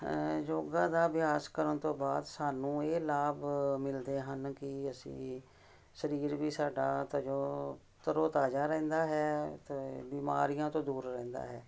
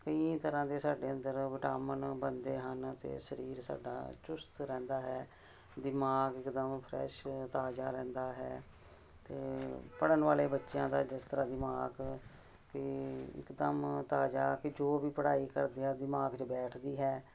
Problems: constant background noise